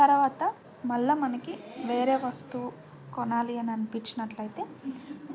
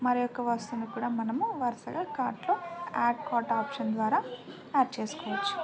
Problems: constant background noise